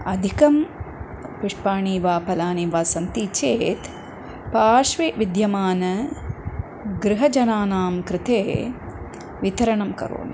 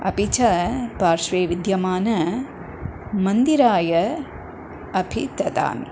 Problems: none marked